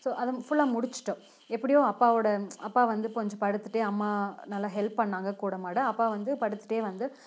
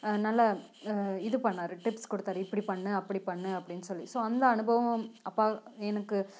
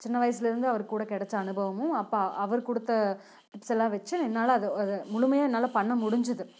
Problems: background sounds at intervals